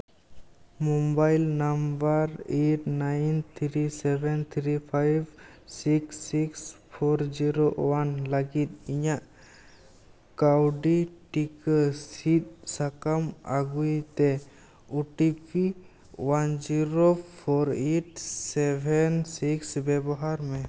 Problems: background sounds at intervals